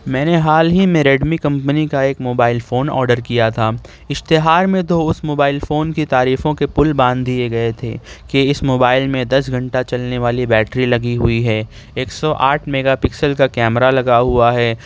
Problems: none marked